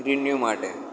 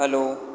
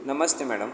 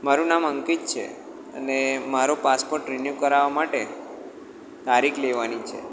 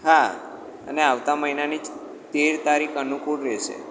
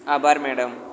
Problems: constant background noise, echo